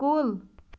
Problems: background sounds at intervals